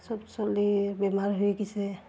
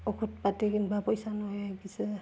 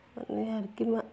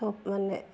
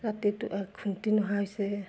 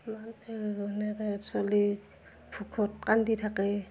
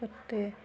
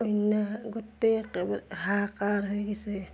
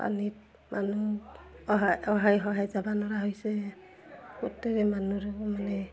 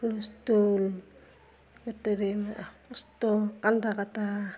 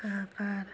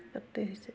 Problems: background sounds at intervals, continuous background conversations